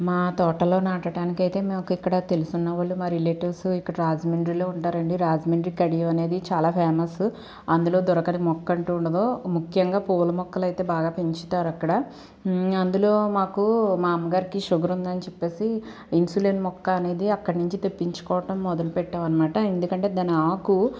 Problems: none marked